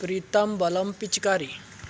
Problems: background sounds at intervals